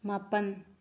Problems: low volume